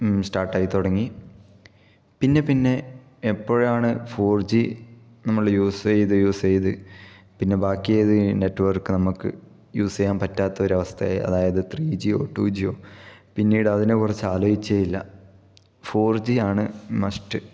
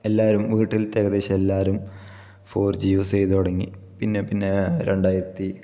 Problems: background sounds at intervals